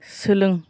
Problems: none marked